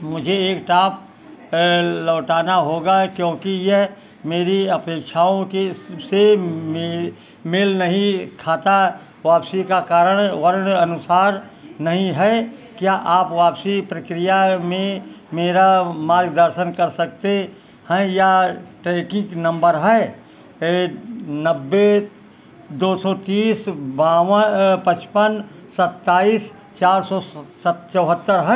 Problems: background sounds at intervals